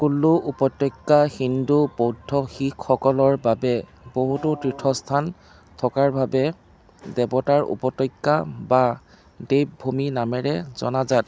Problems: none marked